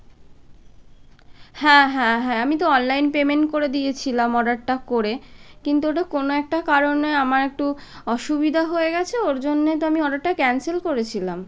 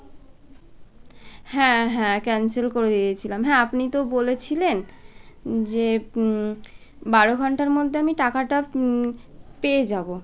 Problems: none marked